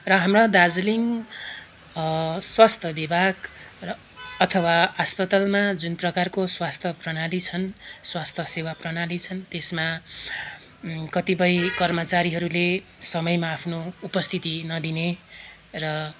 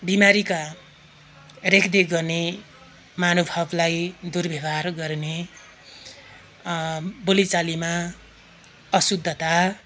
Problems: constant background noise